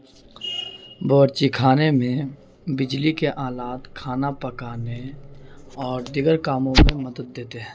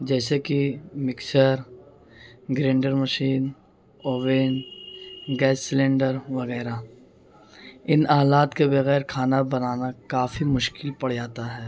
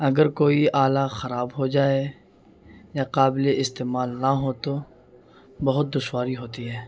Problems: constant background noise